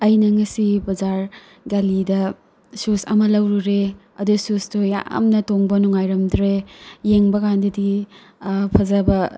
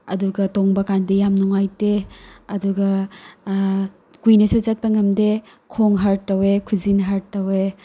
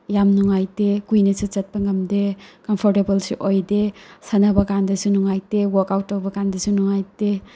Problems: background sounds at intervals